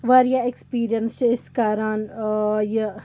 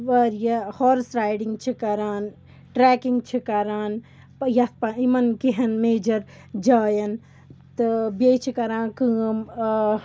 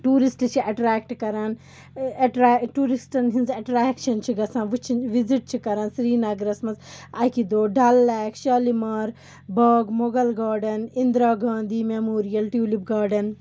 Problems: background sounds at intervals